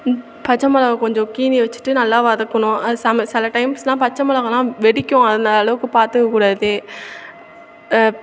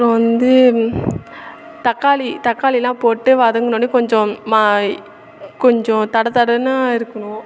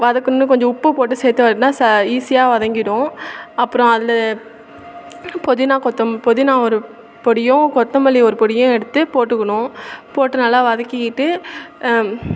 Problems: constant background noise